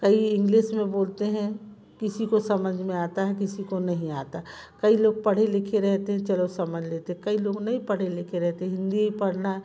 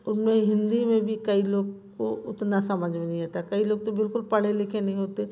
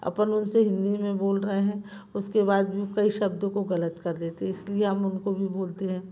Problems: constant background noise